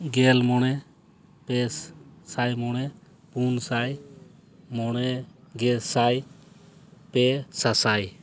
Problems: none marked